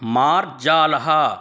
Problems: none marked